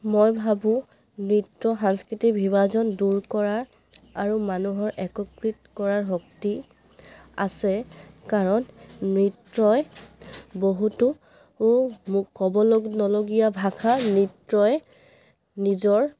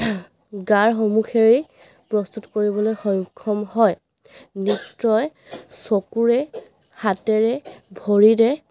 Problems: background sounds at intervals